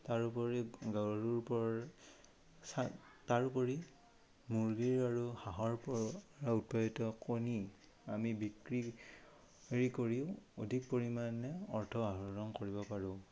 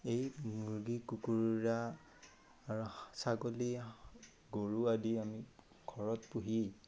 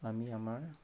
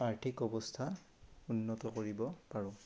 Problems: none marked